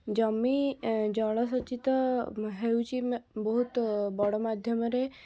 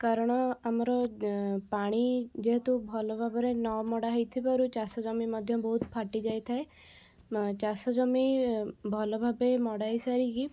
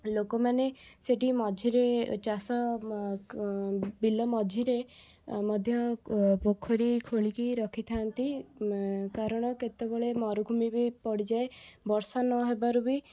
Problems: background conversations at intervals